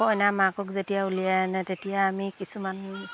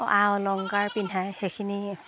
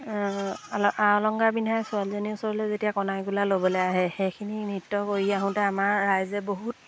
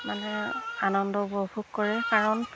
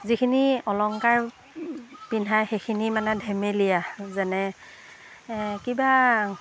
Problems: background sounds at intervals